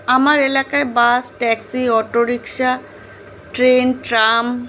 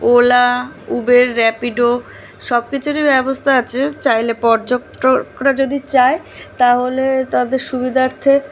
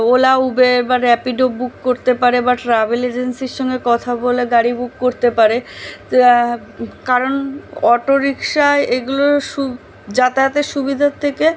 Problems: constant background noise